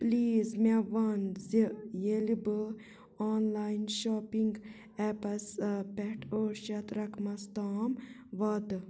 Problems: background sounds at intervals, low volume